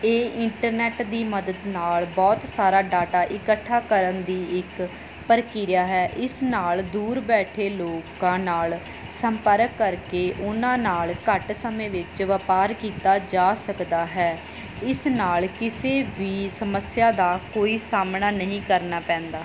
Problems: background sounds at intervals